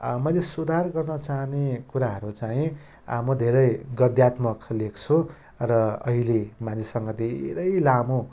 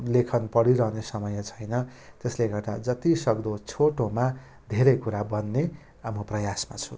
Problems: constant background noise